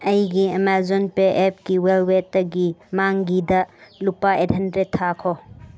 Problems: none marked